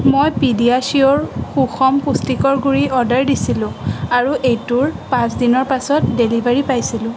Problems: constant background noise